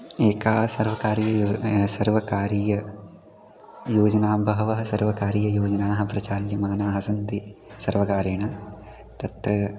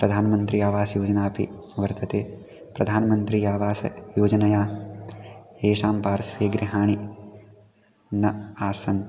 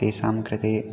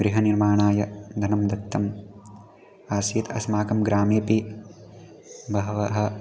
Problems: none marked